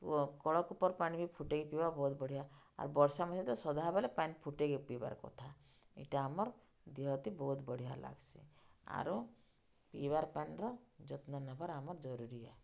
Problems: low volume